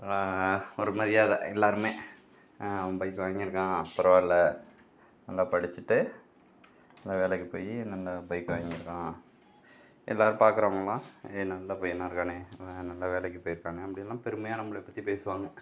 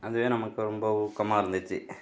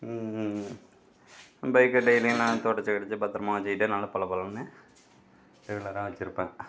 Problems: none marked